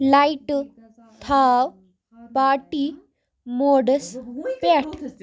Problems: continuous background conversations